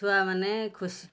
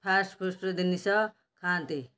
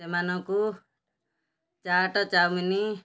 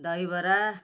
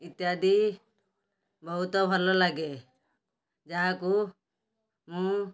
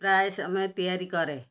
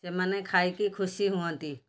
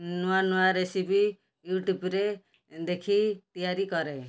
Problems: background sounds at intervals